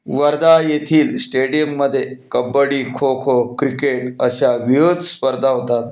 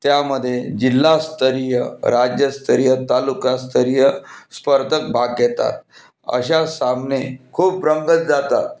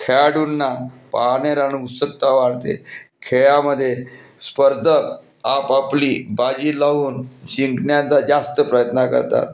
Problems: constant background noise